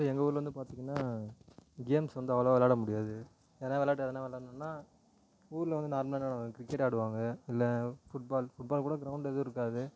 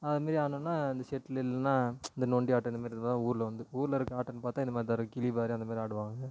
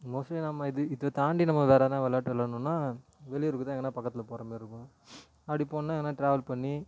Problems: none marked